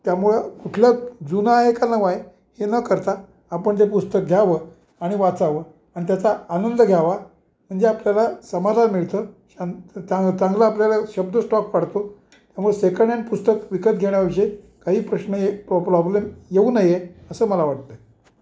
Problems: background sounds at intervals